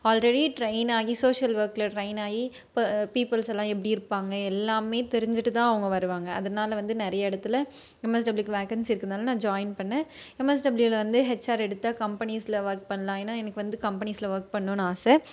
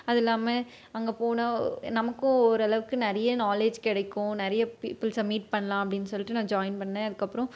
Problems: none marked